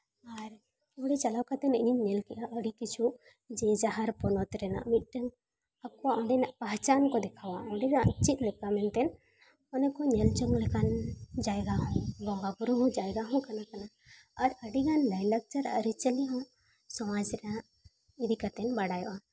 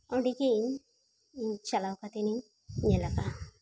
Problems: background sounds at intervals